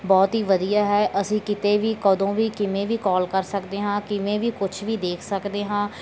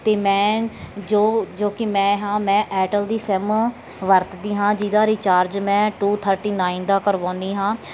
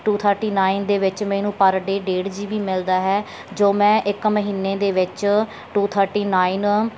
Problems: none marked